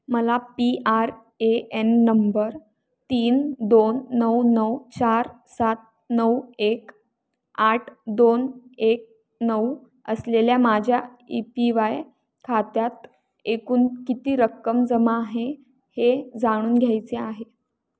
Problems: background sounds at intervals